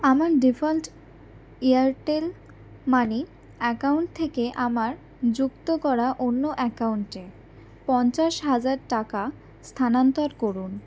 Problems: none marked